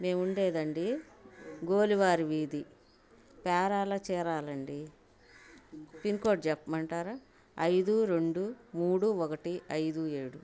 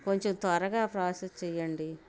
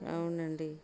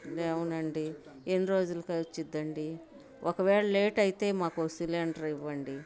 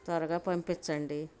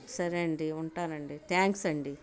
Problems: constant background noise